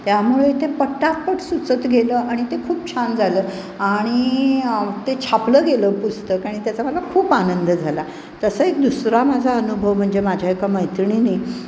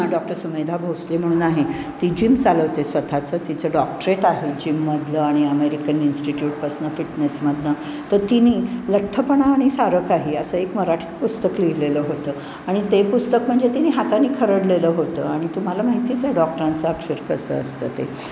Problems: background sounds at intervals